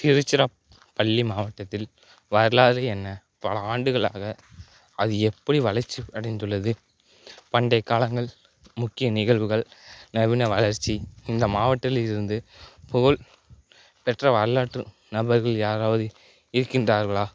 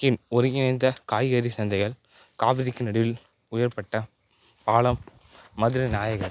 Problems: background sounds at intervals